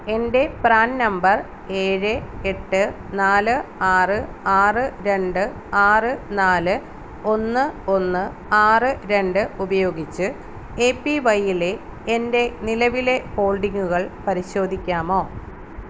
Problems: constant background noise